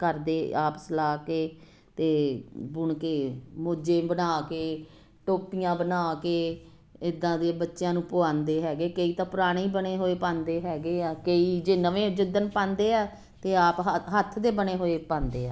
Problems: constant background noise